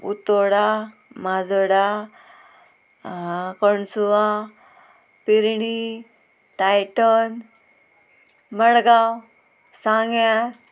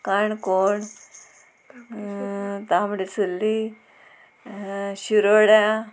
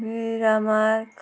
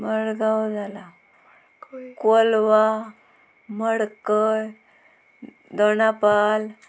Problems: constant background noise